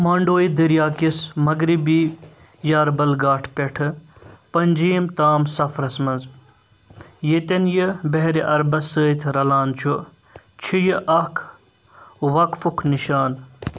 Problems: constant background noise